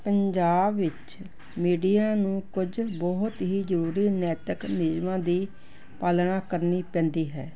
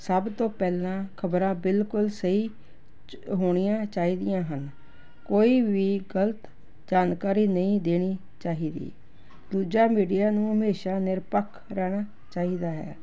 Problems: background sounds at intervals